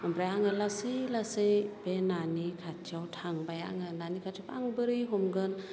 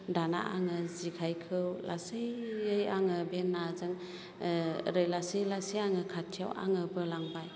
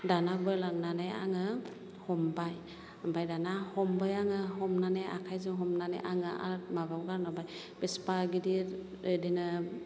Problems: low volume